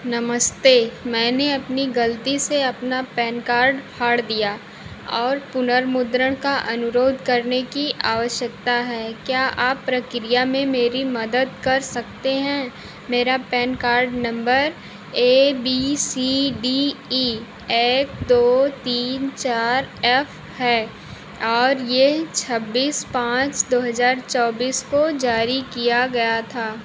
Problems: constant background noise